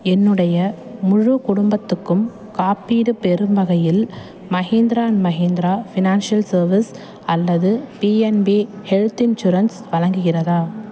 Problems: constant background noise, background conversations at intervals